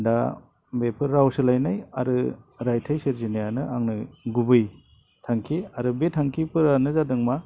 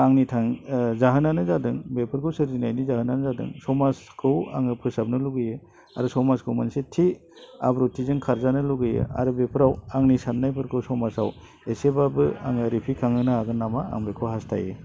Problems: low volume